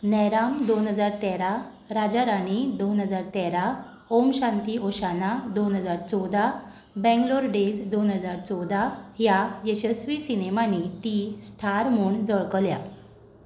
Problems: background sounds at intervals